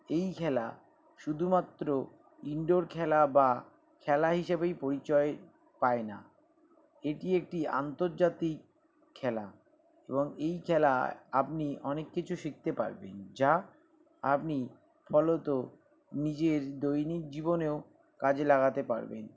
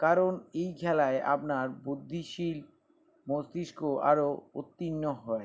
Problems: background sounds at intervals